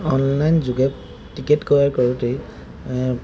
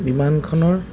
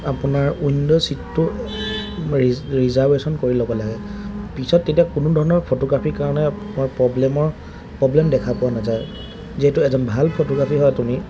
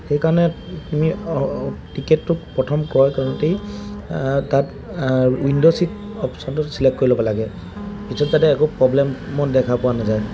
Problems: background sounds at intervals